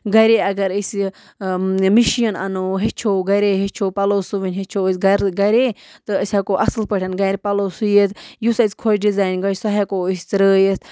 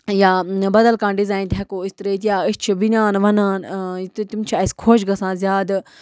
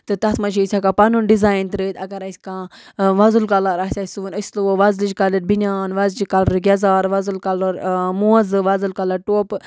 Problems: background sounds at intervals